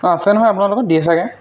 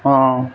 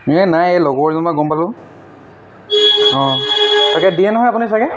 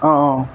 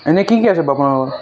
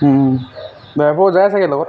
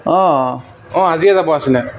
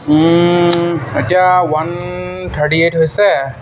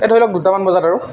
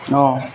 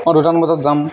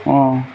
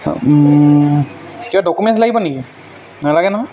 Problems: background sounds at intervals